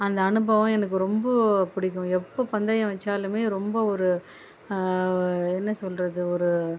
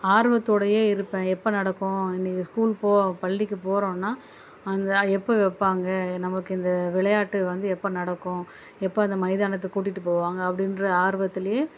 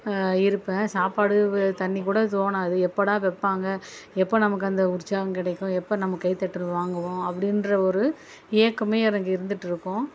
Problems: none marked